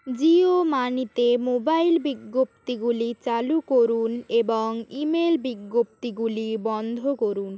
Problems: constant background noise